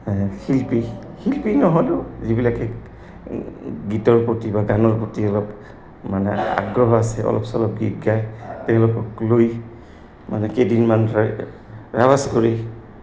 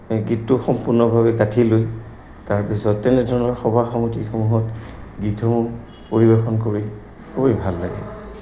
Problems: background sounds at intervals